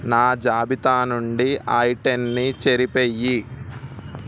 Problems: constant background noise